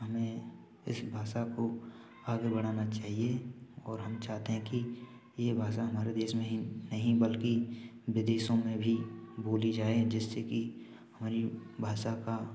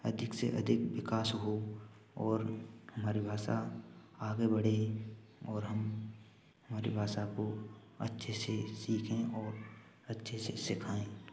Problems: constant background noise